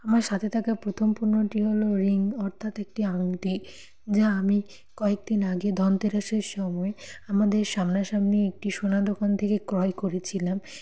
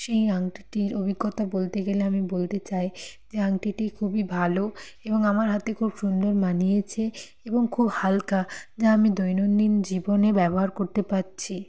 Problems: none marked